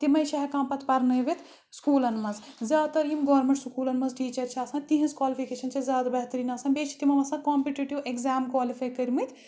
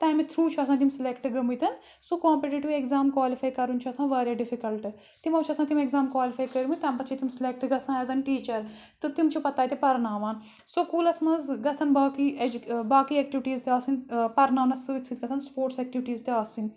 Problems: background sounds at intervals